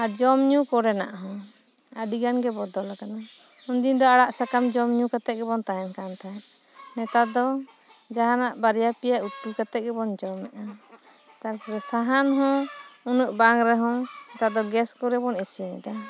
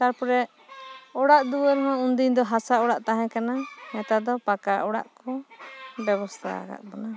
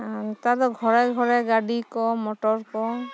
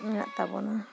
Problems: background sounds at intervals